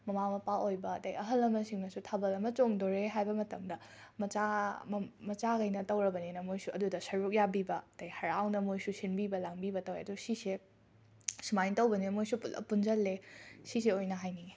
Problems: none marked